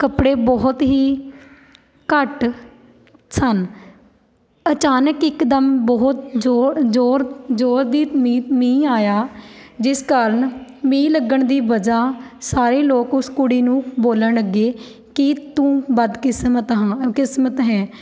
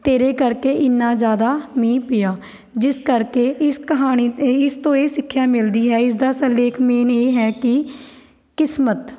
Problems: background sounds at intervals